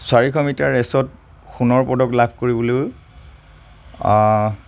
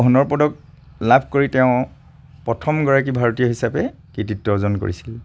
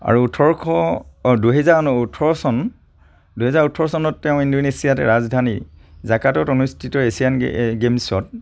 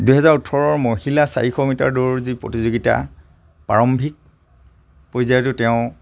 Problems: none marked